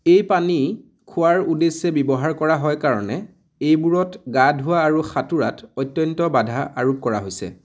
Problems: background sounds at intervals